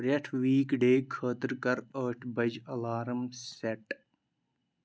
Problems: constant background noise